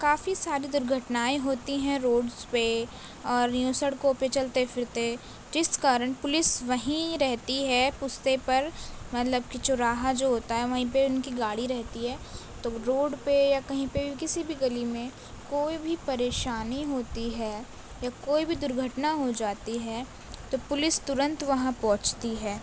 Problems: constant background noise